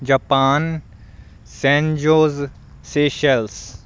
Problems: none marked